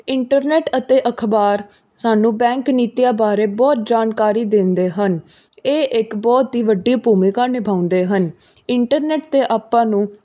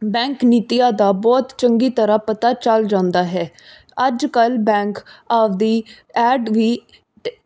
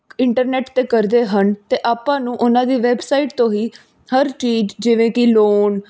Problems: background sounds at intervals